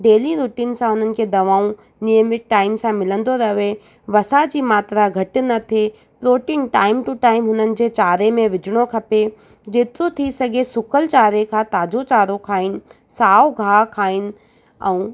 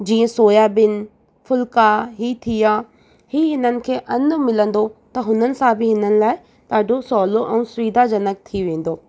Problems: none marked